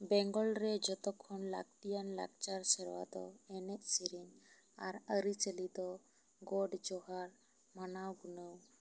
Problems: low volume